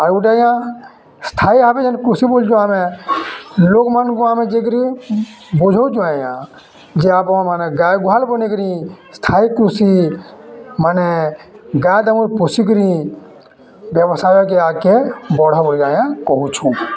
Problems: constant background noise, continuous background conversations